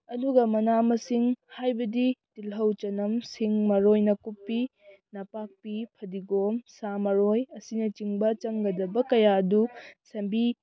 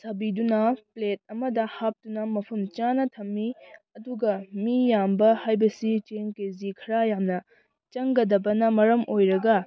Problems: background conversations at intervals